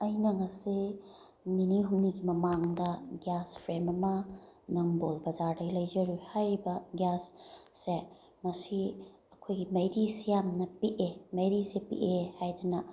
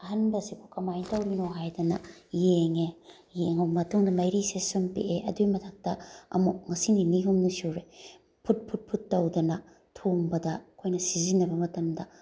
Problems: background sounds at intervals